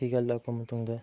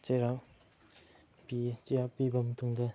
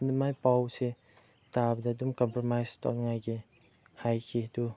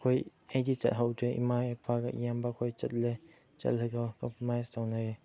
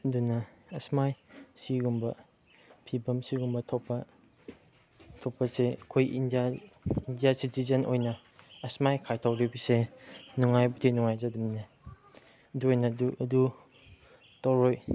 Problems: background sounds at intervals, background conversations at intervals